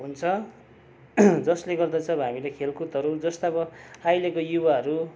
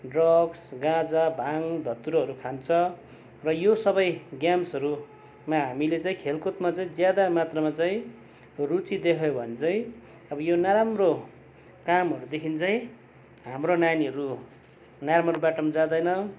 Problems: background sounds at intervals